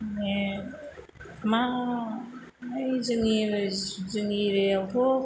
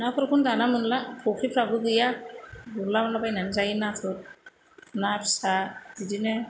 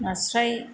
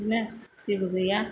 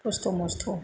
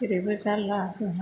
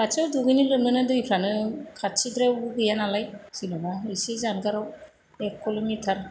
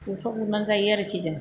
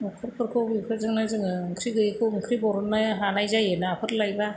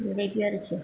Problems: constant background noise